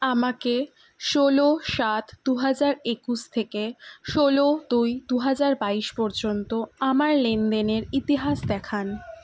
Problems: constant background noise